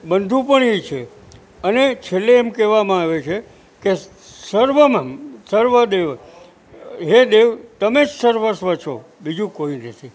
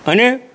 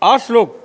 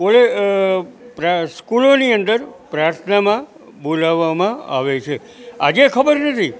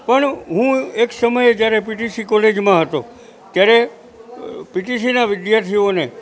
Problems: constant background noise